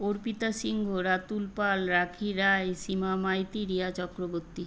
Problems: constant background noise